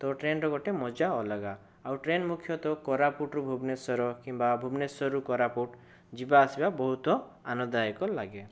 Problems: none marked